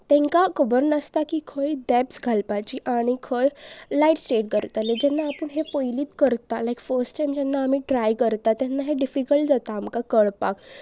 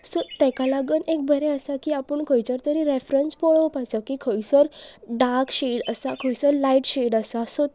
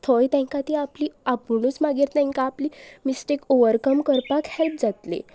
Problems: background sounds at intervals